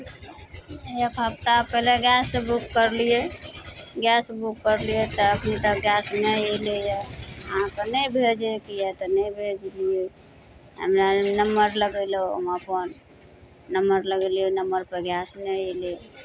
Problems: none marked